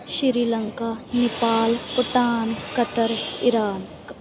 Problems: background conversations at intervals